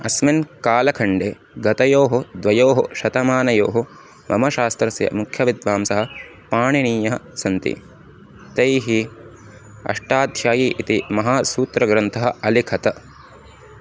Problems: constant background noise